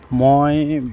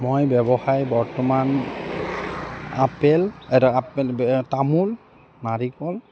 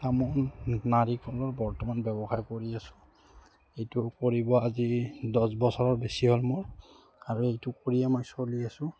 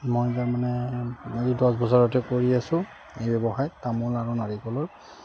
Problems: constant background noise